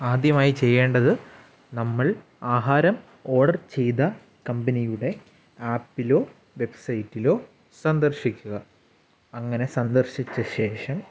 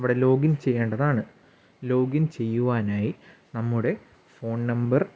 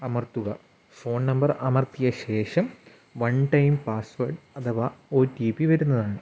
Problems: background sounds at intervals